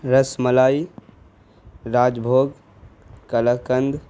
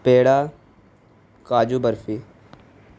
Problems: constant background noise